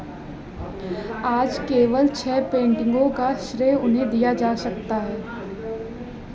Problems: background conversations at intervals